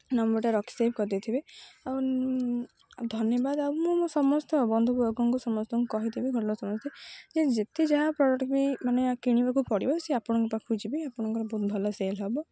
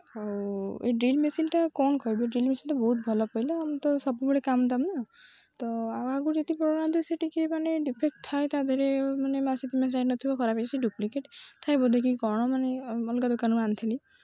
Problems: none marked